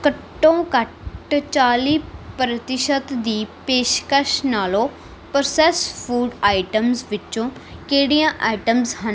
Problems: none marked